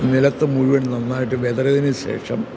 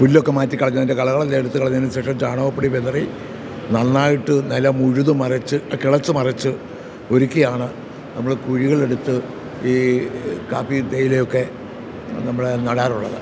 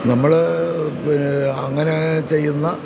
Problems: constant background noise